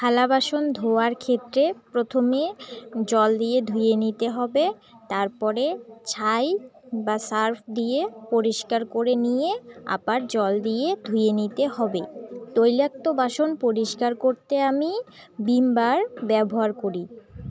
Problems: continuous background conversations